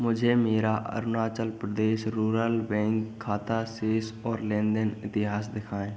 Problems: background sounds at intervals, continuous background conversations